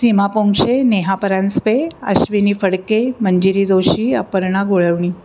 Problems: background sounds at intervals